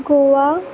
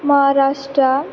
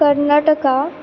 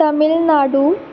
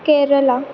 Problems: constant background noise